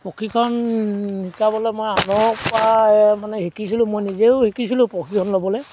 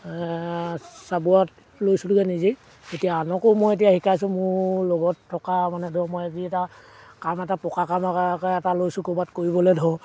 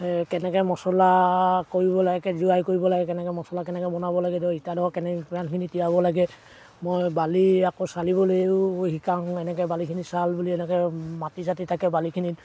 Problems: background sounds at intervals